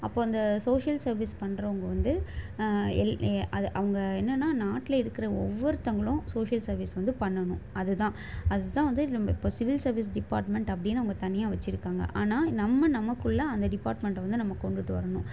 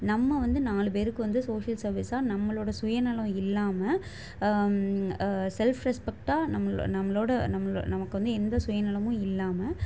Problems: constant background noise